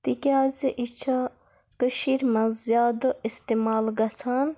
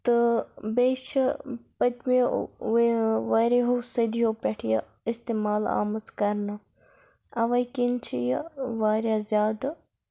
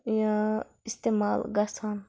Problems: none marked